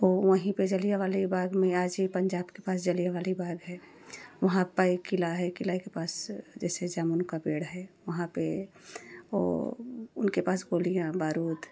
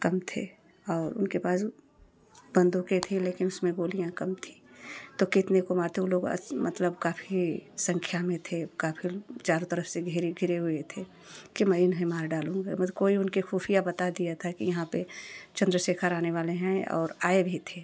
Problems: none marked